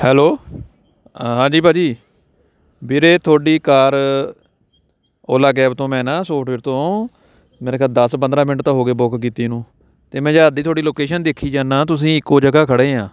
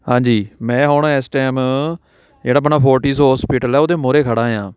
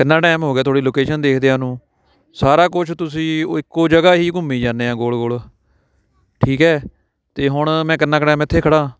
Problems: background conversations at intervals